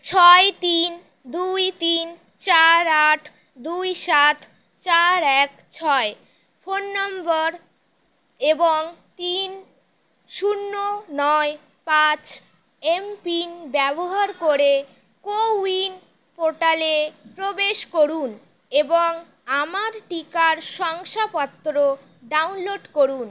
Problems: none marked